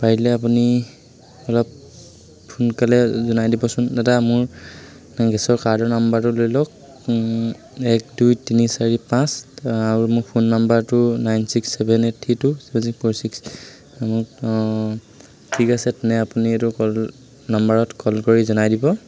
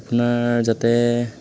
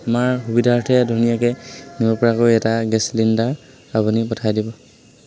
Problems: constant background noise, background conversations at intervals